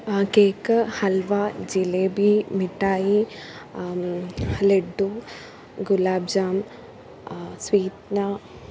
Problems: none marked